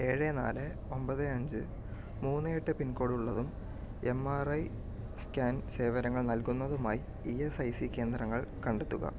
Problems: low volume